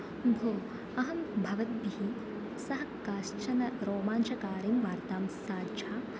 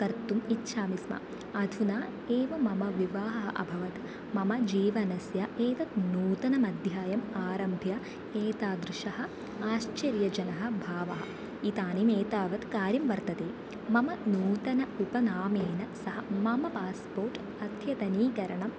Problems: constant background noise, low volume